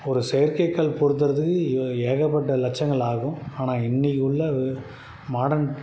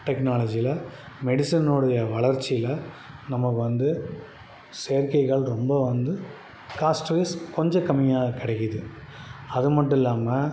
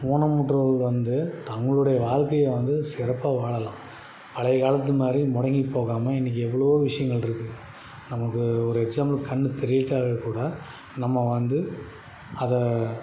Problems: none marked